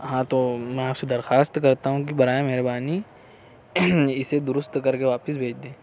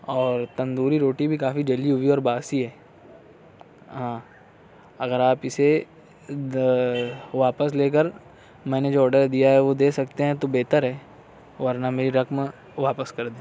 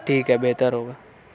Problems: none marked